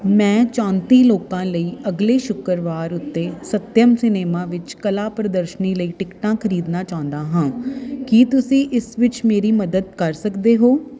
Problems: none marked